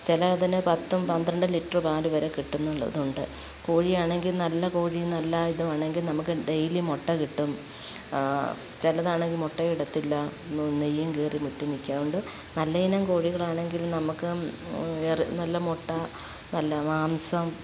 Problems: background sounds at intervals